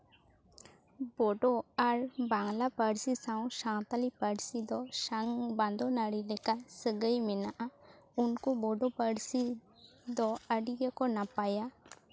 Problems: none marked